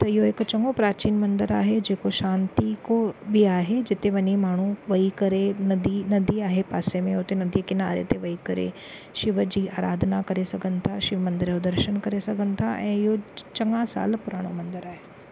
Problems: none marked